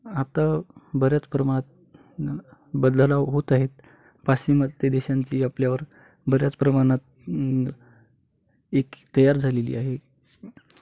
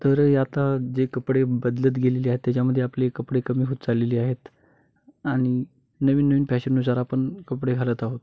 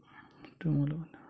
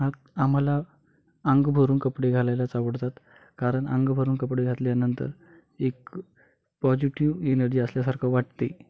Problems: background sounds at intervals